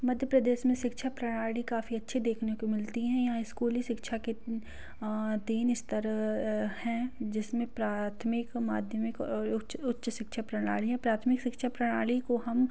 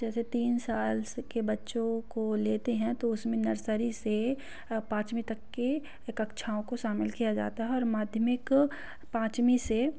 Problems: background sounds at intervals, low volume